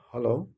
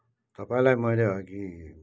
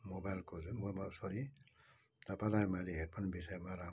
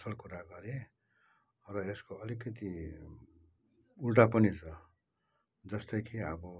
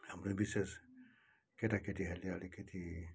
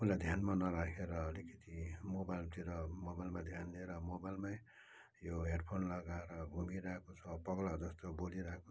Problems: background sounds at intervals